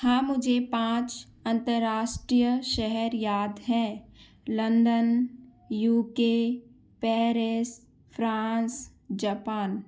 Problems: background sounds at intervals